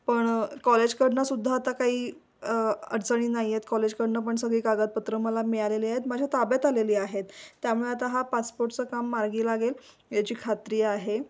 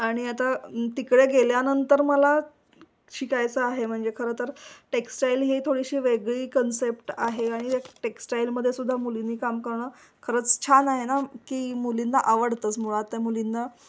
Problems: background sounds at intervals